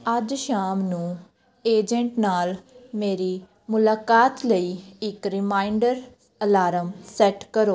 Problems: background conversations at intervals